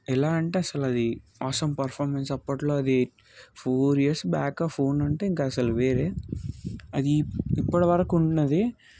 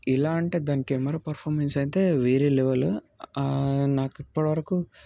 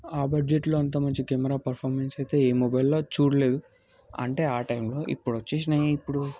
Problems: background sounds at intervals